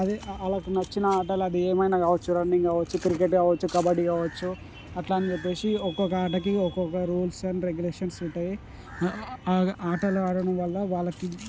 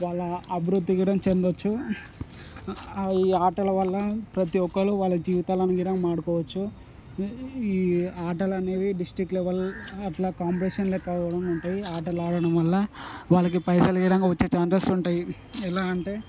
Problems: constant background noise